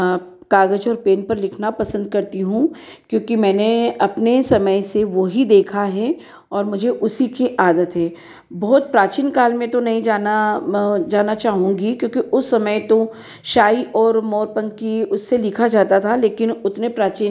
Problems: background sounds at intervals, echo